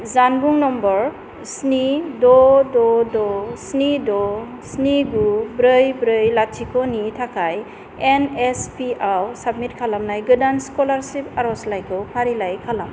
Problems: constant background noise